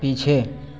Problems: constant background noise, echo